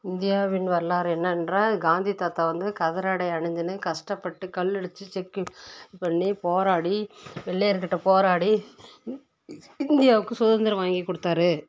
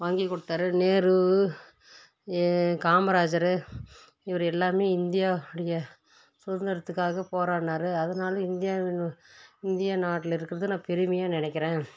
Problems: background sounds at intervals